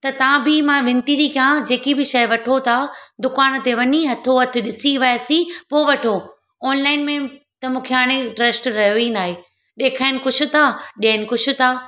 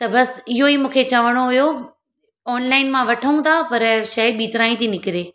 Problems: none marked